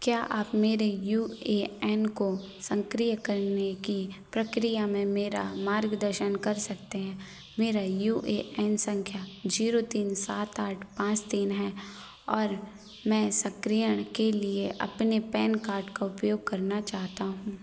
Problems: constant background noise